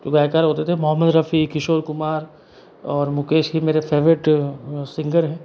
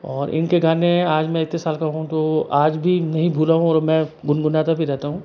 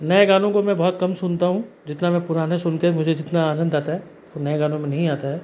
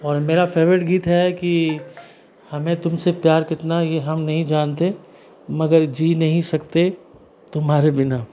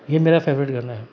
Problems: background conversations at intervals